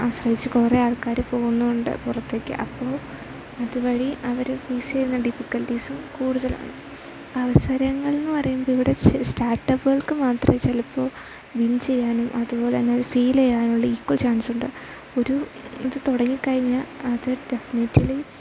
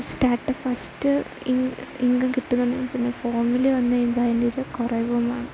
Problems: constant background noise